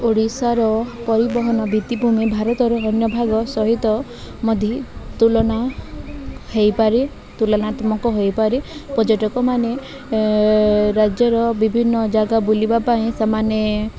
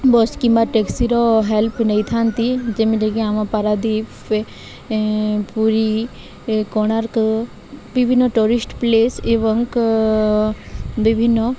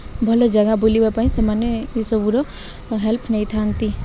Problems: none marked